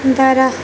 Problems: constant background noise